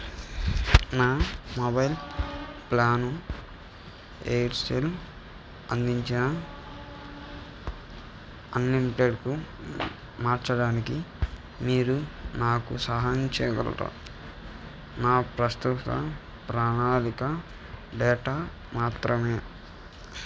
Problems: constant background noise